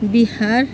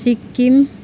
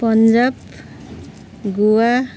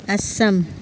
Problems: constant background noise